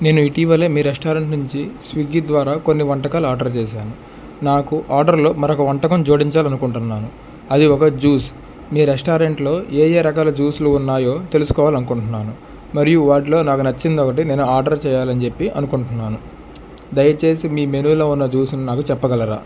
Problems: constant background noise